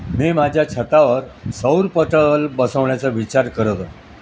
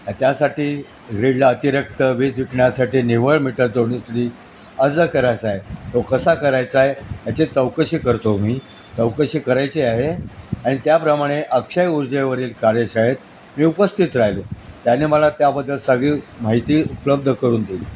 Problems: constant background noise, background conversations at intervals